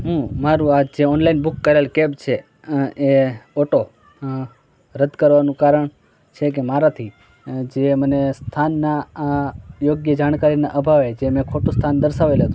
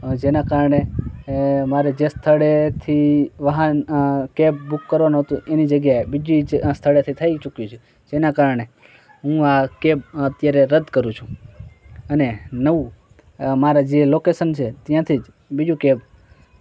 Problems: constant background noise, background conversations at intervals